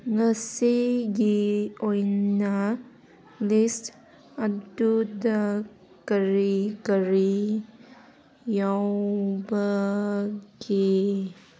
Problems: none marked